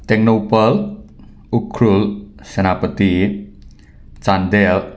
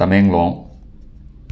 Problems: none marked